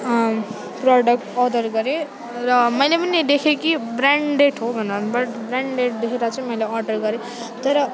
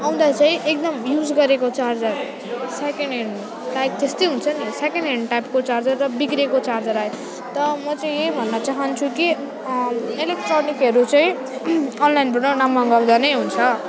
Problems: none marked